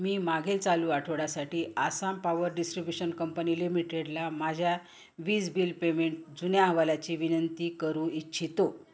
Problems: background sounds at intervals